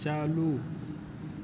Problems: constant background noise